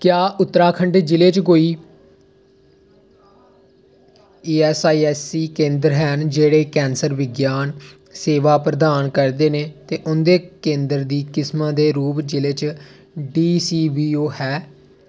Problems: none marked